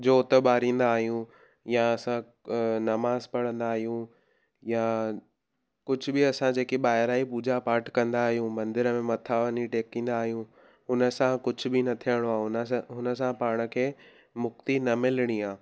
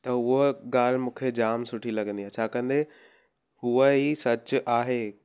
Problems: none marked